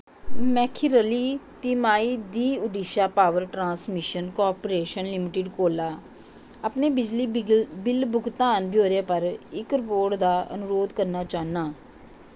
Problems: constant background noise